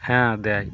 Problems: constant background noise